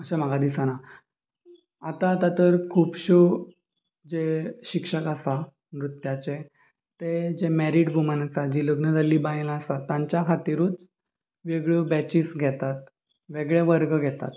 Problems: constant background noise, background conversations at intervals